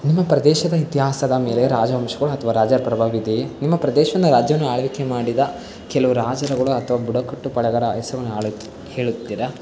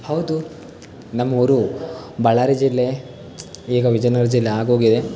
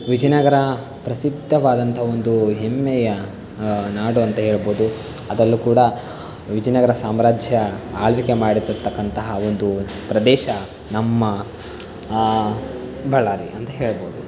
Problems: constant background noise